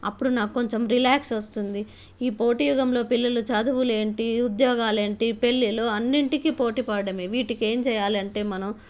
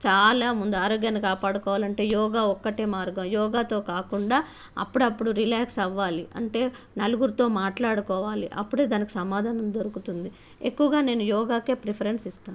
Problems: none marked